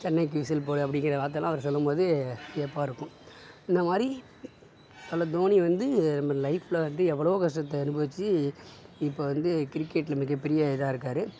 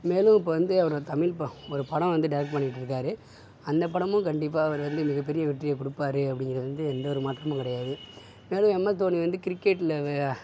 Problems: none marked